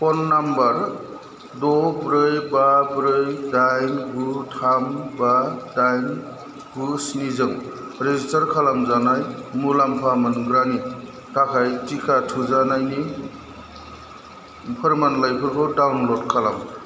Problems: constant background noise